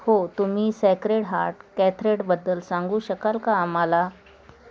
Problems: constant background noise